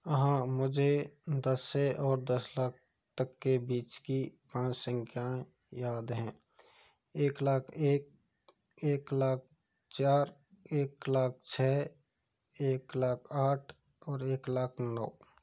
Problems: none marked